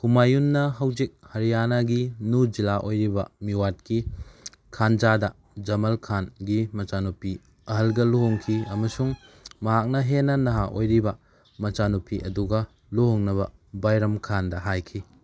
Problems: background sounds at intervals